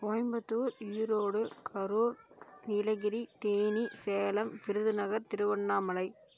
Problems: low volume